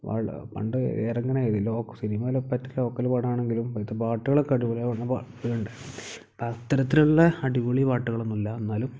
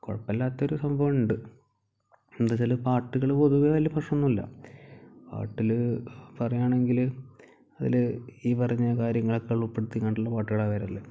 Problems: low volume